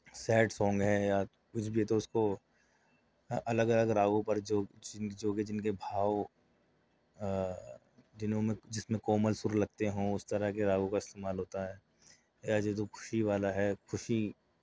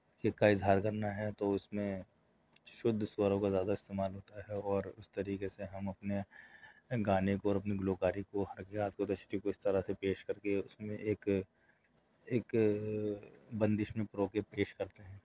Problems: none marked